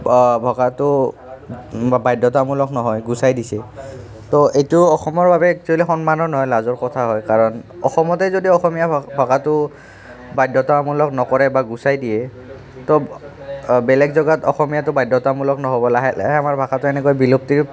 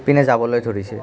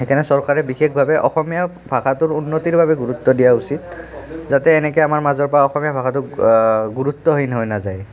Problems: none marked